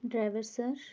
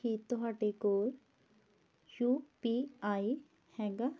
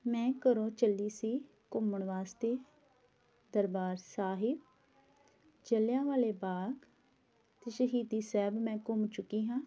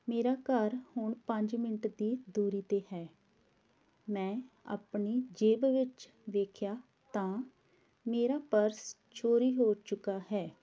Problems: none marked